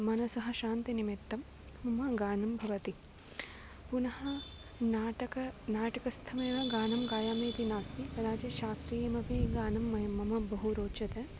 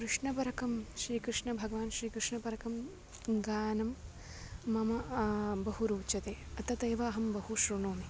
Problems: none marked